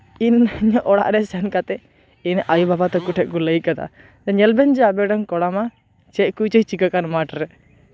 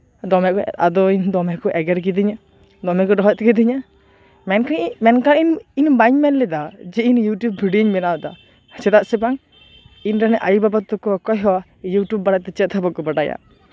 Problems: none marked